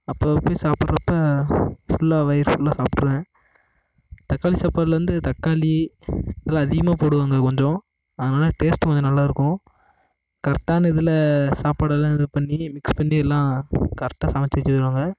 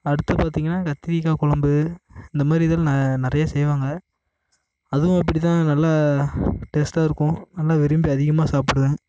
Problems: constant background noise